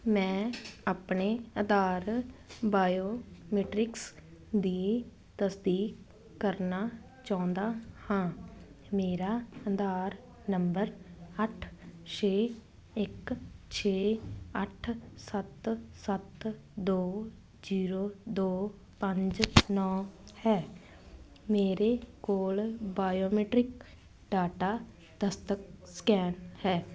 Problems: continuous background conversations